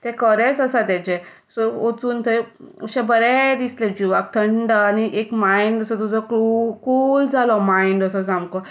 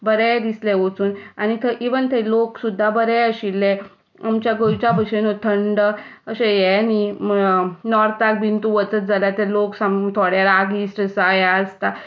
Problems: none marked